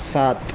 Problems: constant background noise